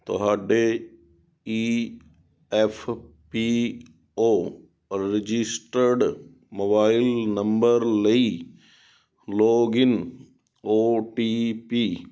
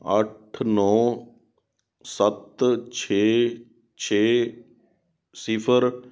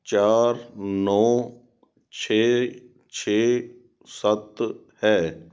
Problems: background sounds at intervals